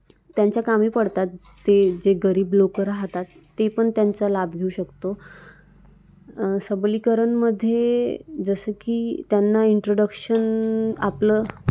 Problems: none marked